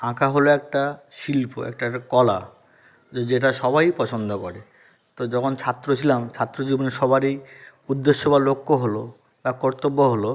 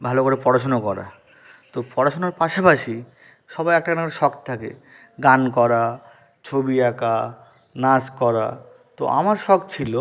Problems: constant background noise